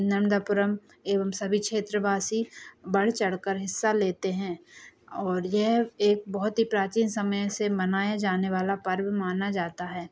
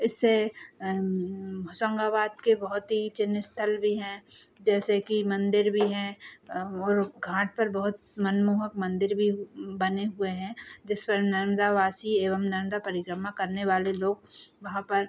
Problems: background sounds at intervals